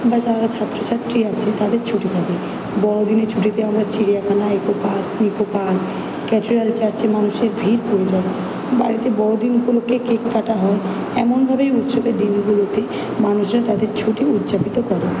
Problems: constant background noise